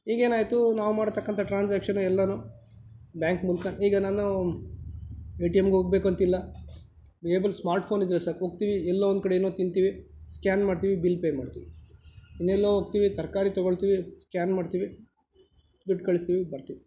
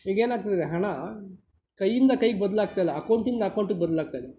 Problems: none marked